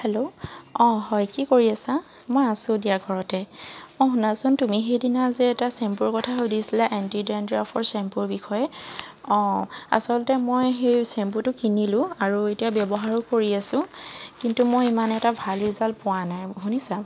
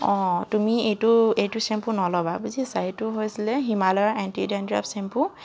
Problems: none marked